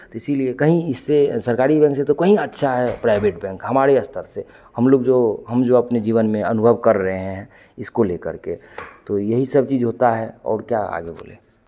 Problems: none marked